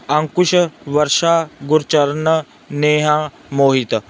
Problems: background sounds at intervals